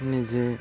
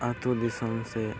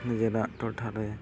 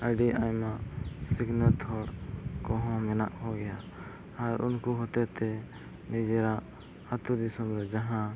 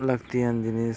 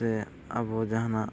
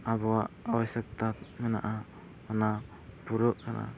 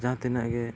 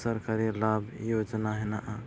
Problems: constant background noise